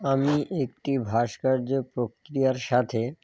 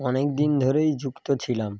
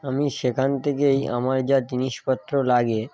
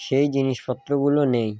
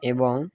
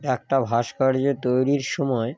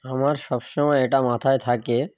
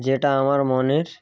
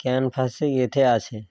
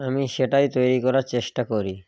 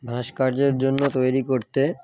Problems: background sounds at intervals